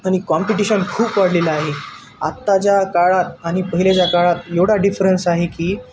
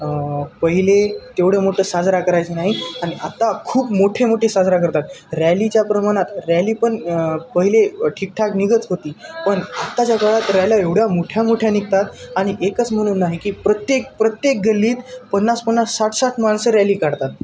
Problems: none marked